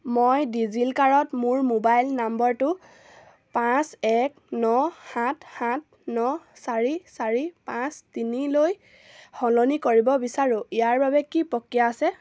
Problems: none marked